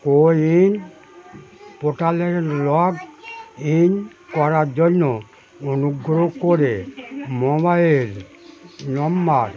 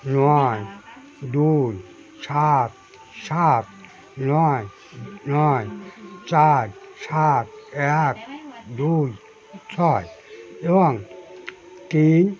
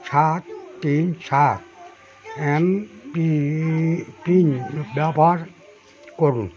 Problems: none marked